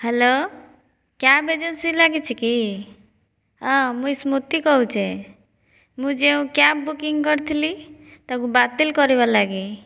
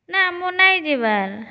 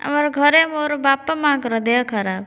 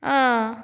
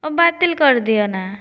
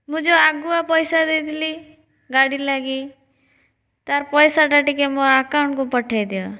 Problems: none marked